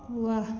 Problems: echo